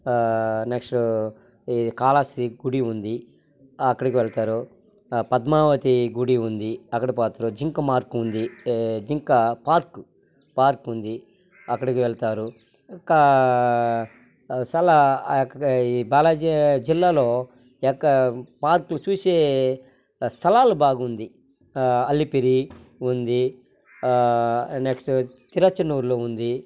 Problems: none marked